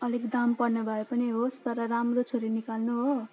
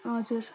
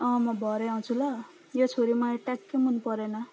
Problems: none marked